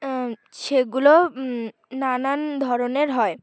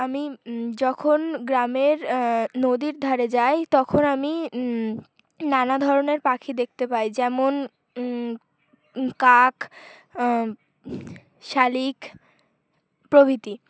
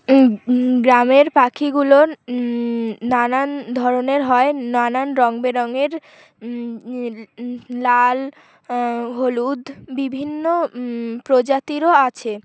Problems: constant background noise